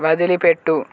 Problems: none marked